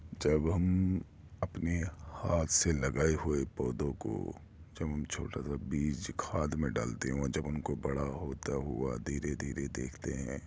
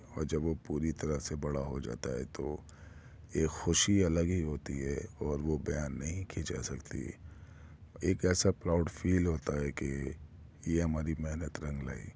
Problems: background sounds at intervals